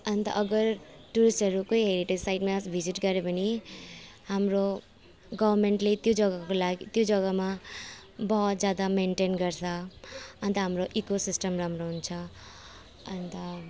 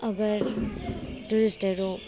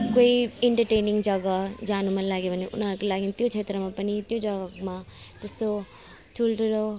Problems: constant background noise